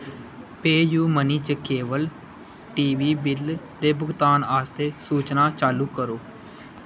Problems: constant background noise